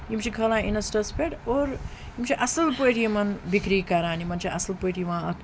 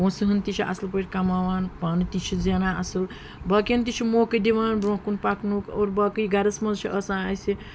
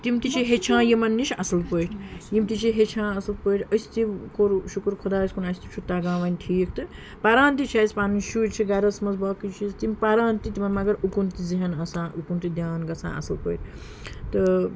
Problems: background sounds at intervals, background conversations at intervals